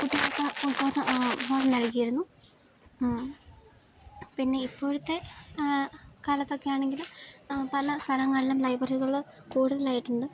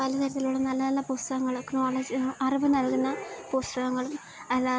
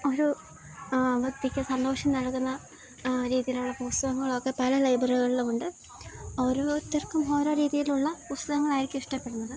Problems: none marked